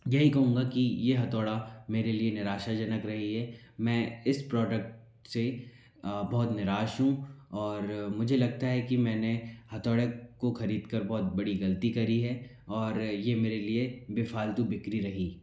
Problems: background sounds at intervals